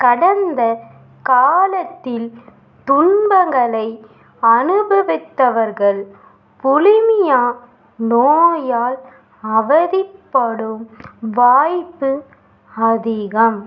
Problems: none marked